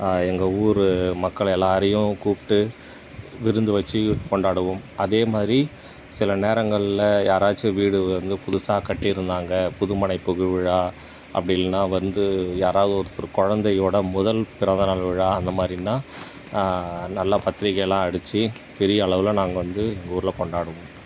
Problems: background sounds at intervals